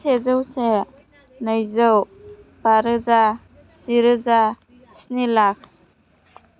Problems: none marked